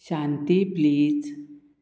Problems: none marked